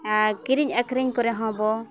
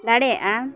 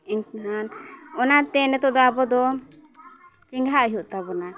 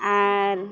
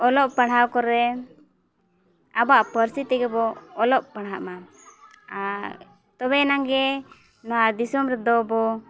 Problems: constant background noise, background conversations at intervals